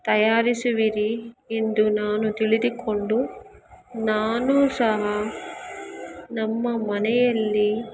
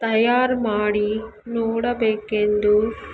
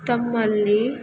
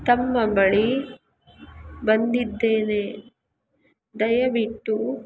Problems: background sounds at intervals